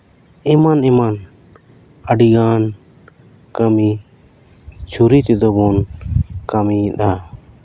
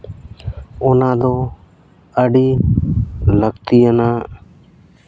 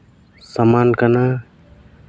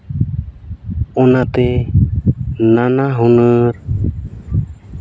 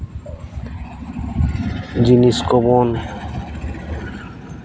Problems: none marked